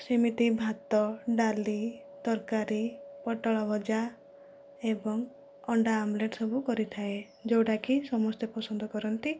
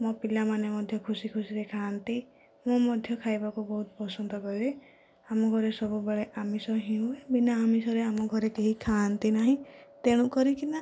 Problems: low volume